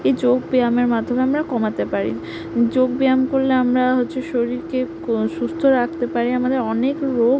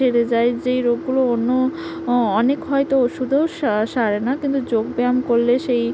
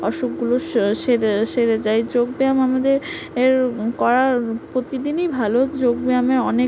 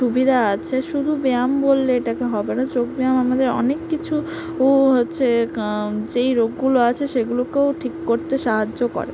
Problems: background sounds at intervals